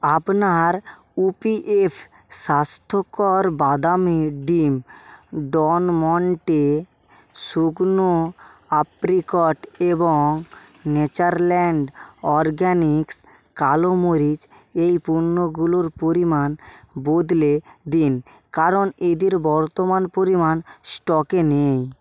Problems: background sounds at intervals